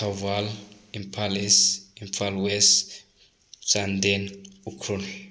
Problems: none marked